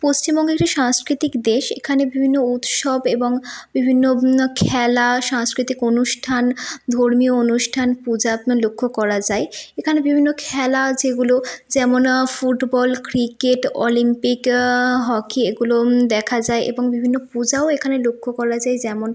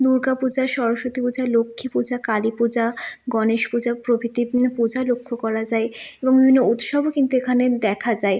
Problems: constant background noise